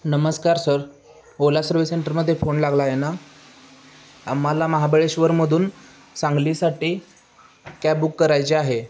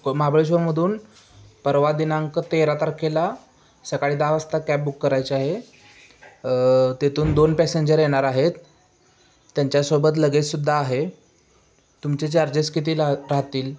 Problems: constant background noise, background conversations at intervals